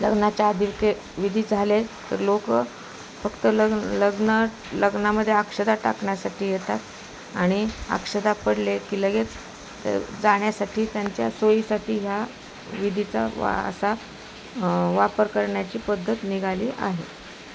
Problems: constant background noise, background conversations at intervals